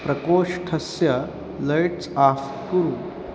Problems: constant background noise